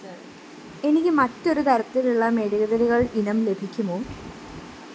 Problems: constant background noise